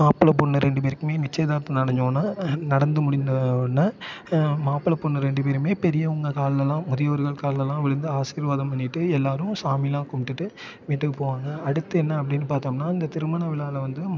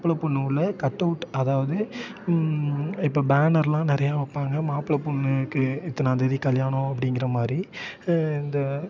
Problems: constant background noise, continuous background conversations